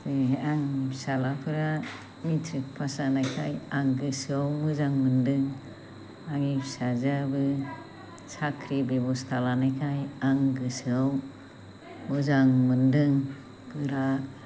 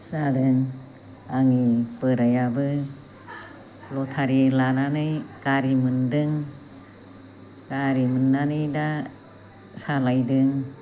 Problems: constant background noise